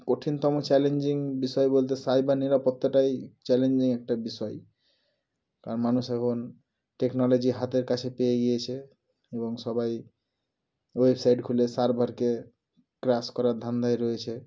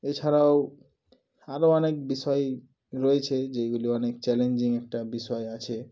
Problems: background sounds at intervals